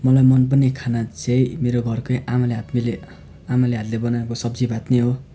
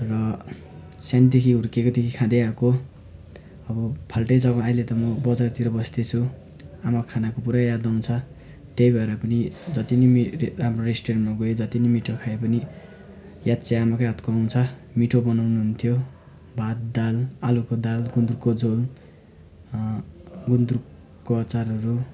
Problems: constant background noise